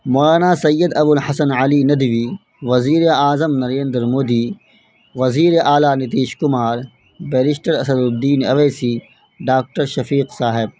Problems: constant background noise